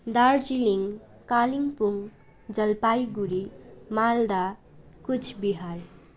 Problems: none marked